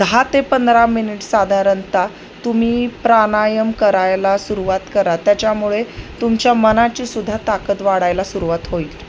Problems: none marked